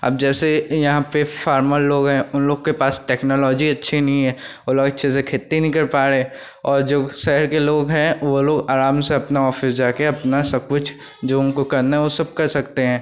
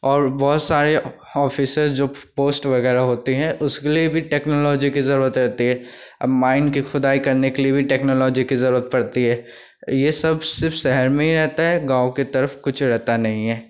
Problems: constant background noise